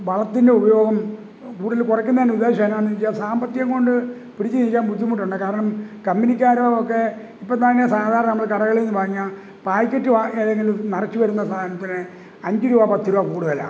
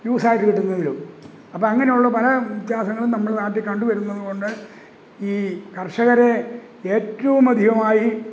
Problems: background sounds at intervals